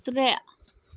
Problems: none marked